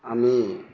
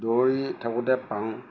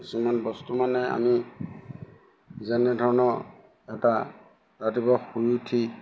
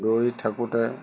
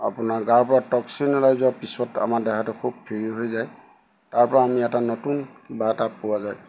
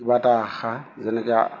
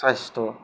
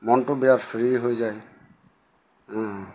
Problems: background sounds at intervals